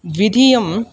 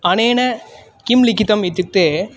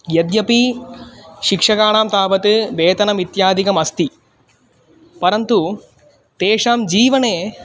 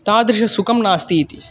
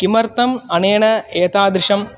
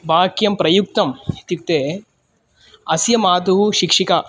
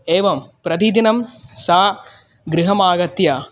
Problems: constant background noise, continuous background conversations